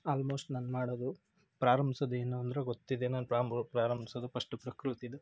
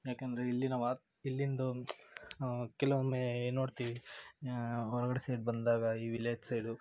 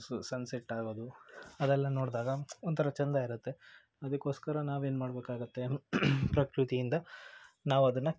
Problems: background sounds at intervals